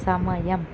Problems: constant background noise